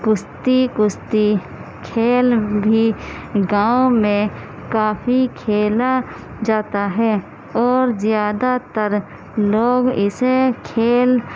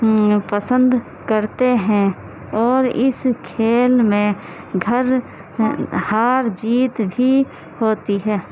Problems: constant background noise, low volume